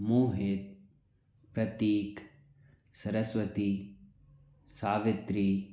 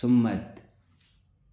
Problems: low volume